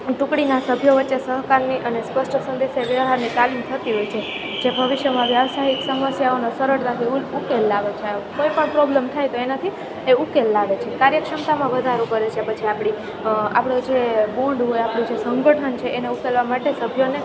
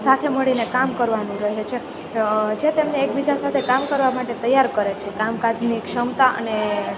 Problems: none marked